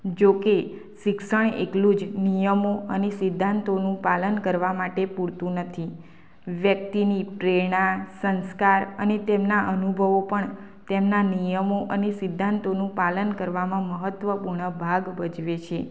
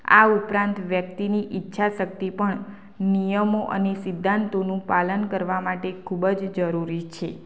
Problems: constant background noise